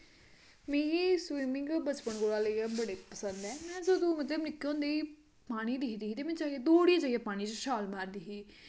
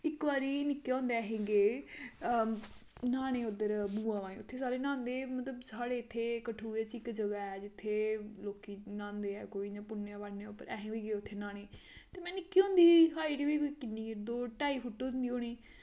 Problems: constant background noise, echo